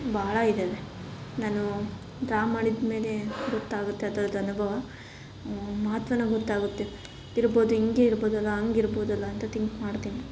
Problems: none marked